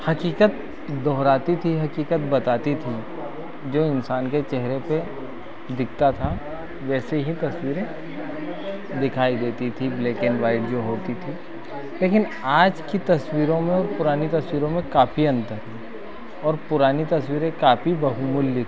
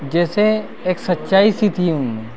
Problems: continuous background conversations